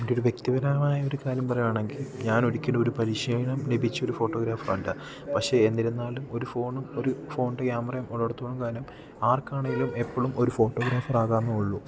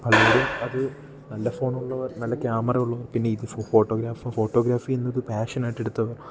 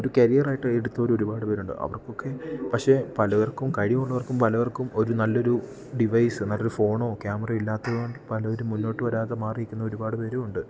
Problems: background sounds at intervals